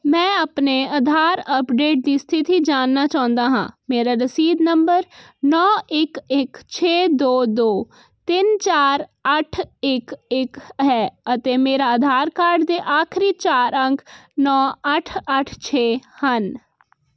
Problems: none marked